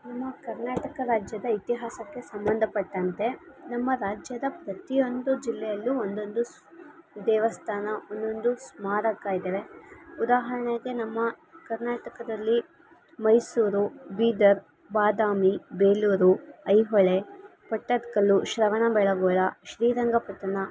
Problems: constant background noise